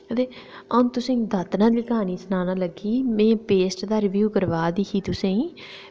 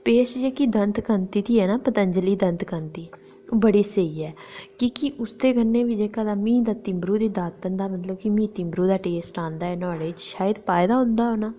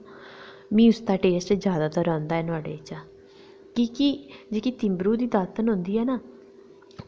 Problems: none marked